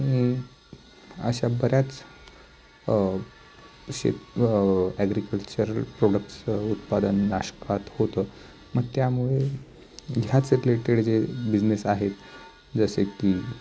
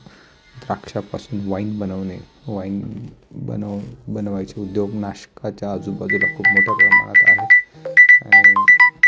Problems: background sounds at intervals